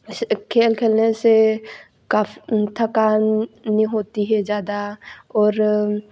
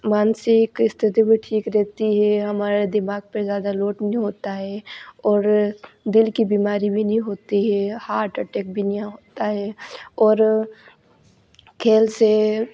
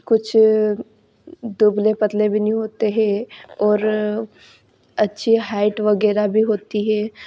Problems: none marked